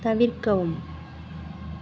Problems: constant background noise